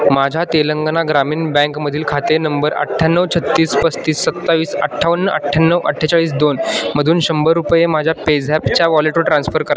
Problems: constant background noise, continuous background conversations